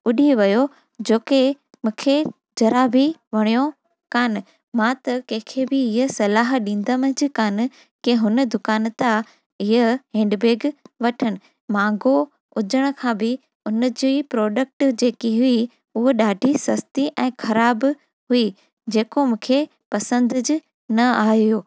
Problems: none marked